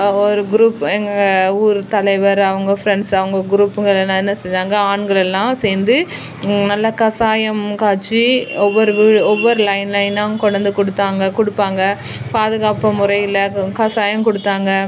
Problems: background sounds at intervals